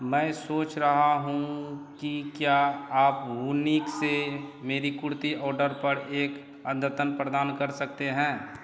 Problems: constant background noise